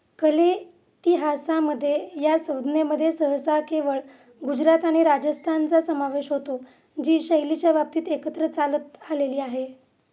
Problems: constant background noise